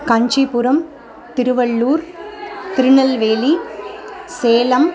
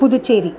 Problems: continuous background conversations